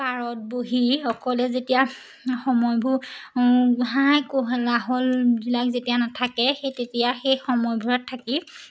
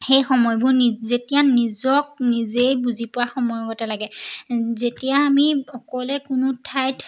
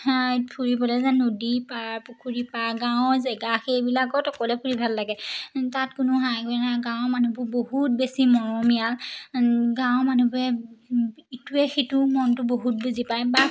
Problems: none marked